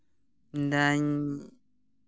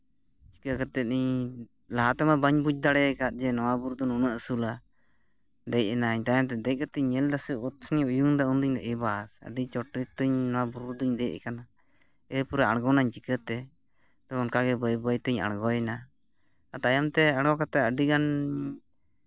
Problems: none marked